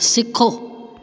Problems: constant background noise, echo